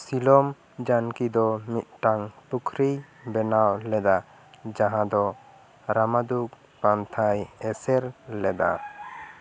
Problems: background sounds at intervals